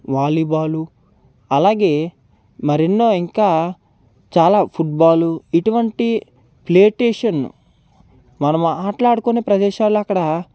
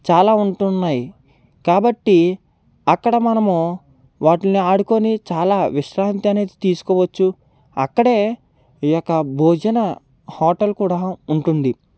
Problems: background sounds at intervals